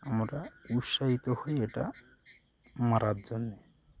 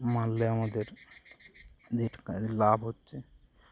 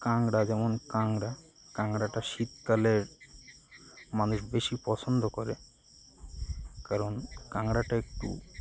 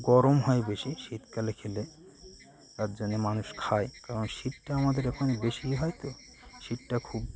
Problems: constant background noise, continuous background conversations